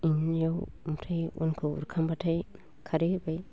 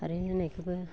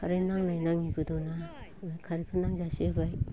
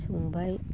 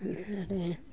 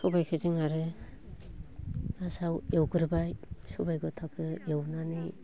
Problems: constant background noise, continuous background conversations